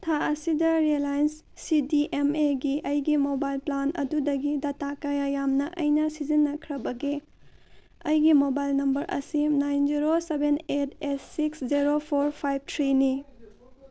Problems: none marked